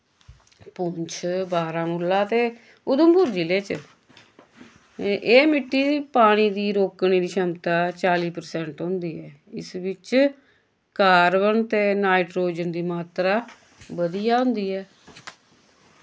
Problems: constant background noise